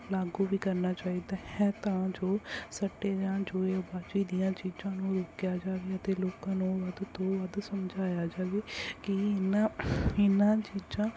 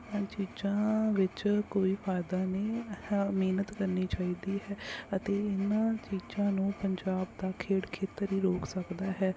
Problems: none marked